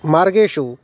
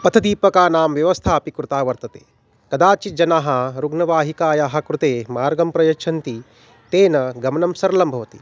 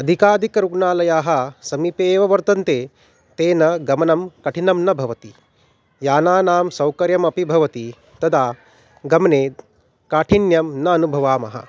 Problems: none marked